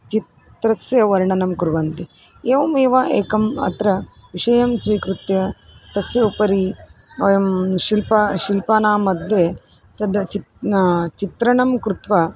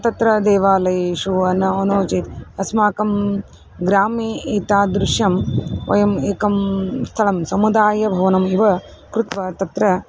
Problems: none marked